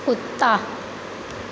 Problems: constant background noise